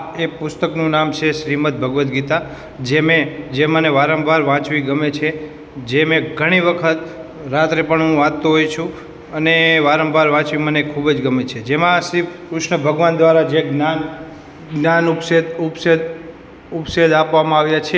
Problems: none marked